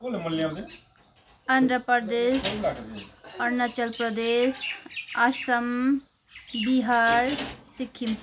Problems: constant background noise